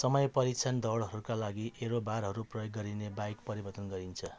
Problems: background sounds at intervals